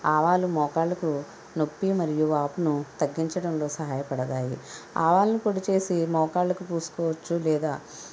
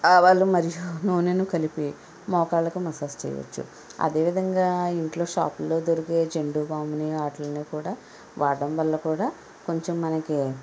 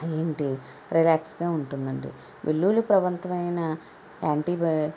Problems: constant background noise